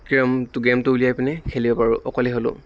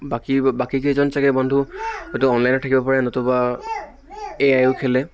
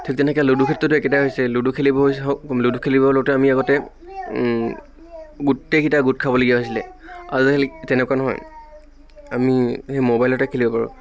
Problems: none marked